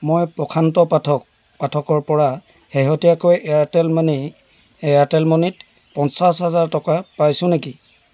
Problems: background sounds at intervals